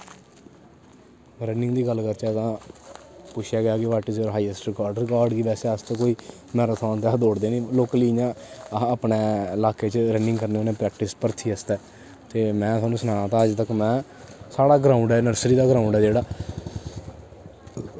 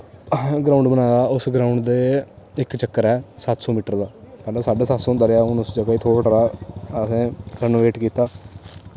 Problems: constant background noise